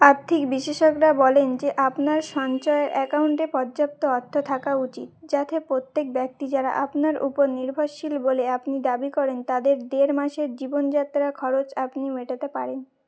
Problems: background sounds at intervals